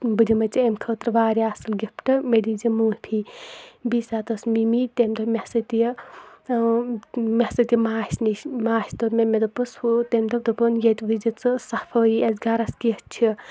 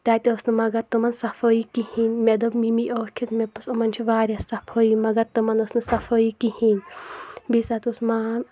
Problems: none marked